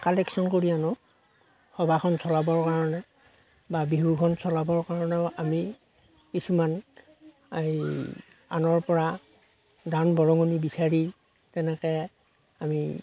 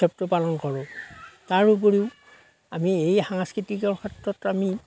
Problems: none marked